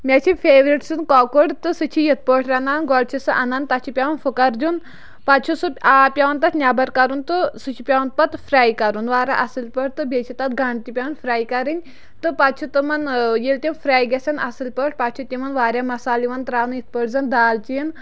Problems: none marked